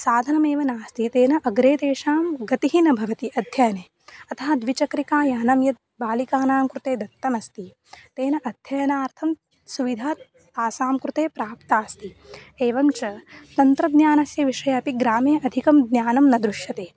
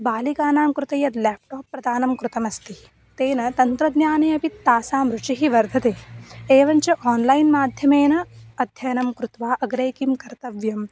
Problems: background sounds at intervals